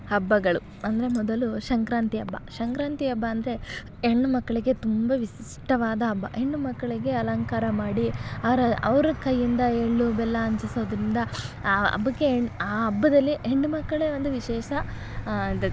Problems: none marked